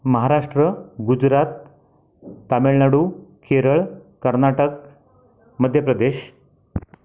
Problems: background sounds at intervals, background conversations at intervals